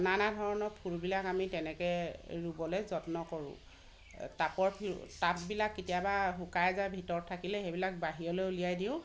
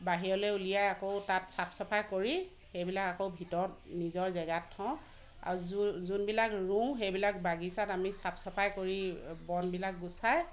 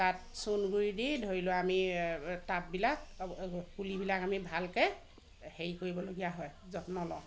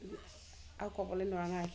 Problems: constant background noise